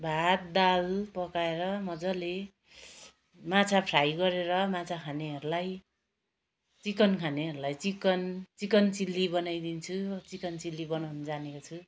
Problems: background sounds at intervals